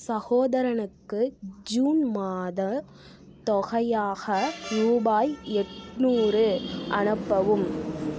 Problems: none marked